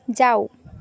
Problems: constant background noise